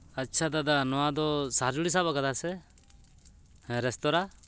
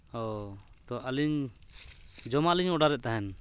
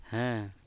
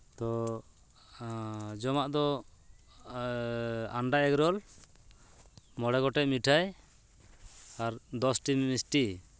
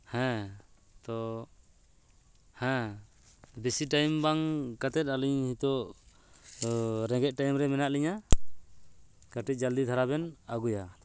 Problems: none marked